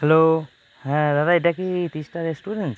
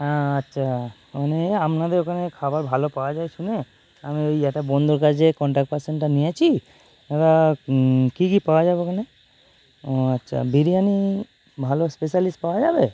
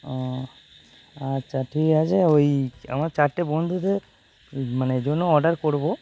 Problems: constant background noise